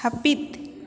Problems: echo